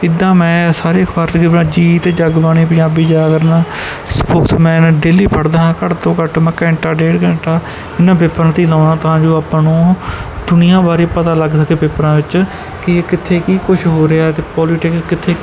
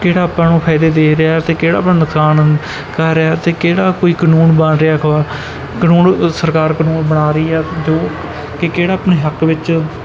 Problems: background sounds at intervals